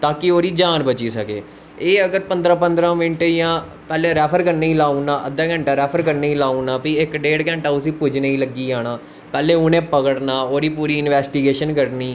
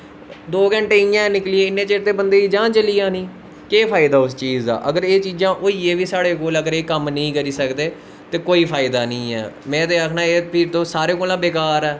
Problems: constant background noise